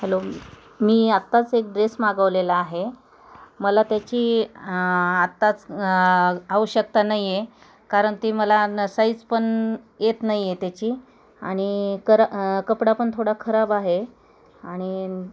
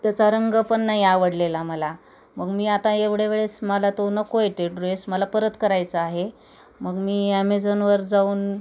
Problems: constant background noise, background conversations at intervals